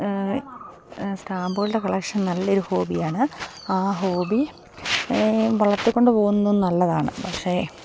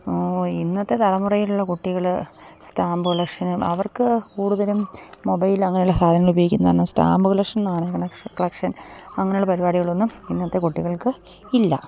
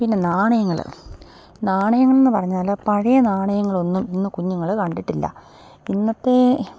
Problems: none marked